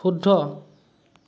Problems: none marked